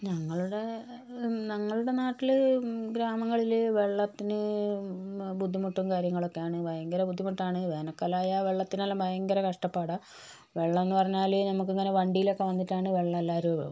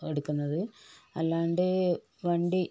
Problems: low volume